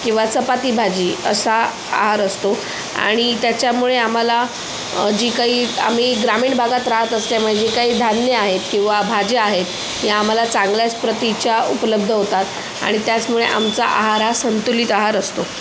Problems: constant background noise